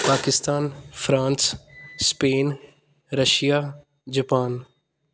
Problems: none marked